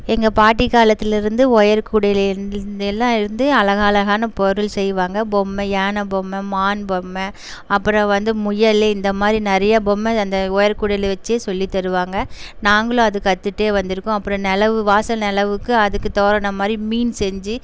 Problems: constant background noise